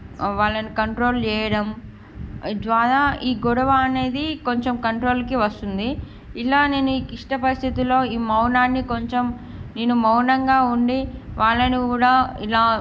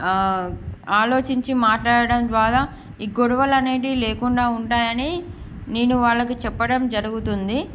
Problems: background sounds at intervals